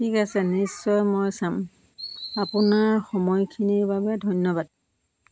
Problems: constant background noise